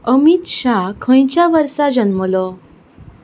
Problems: background sounds at intervals